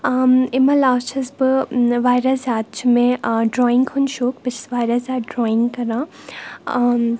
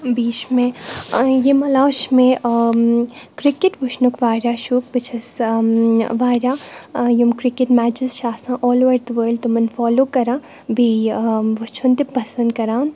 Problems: none marked